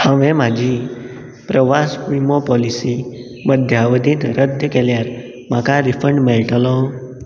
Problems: constant background noise